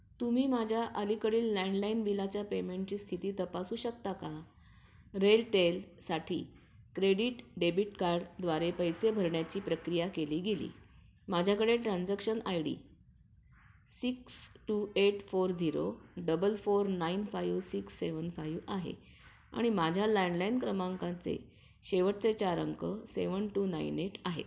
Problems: background sounds at intervals